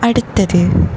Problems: background sounds at intervals